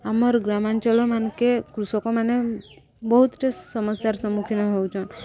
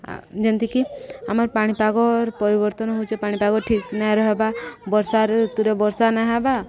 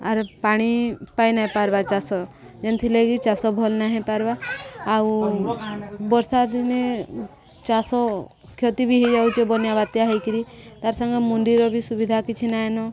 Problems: continuous background conversations